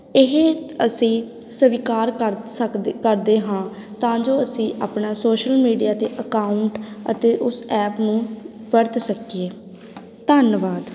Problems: background sounds at intervals